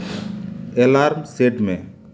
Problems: constant background noise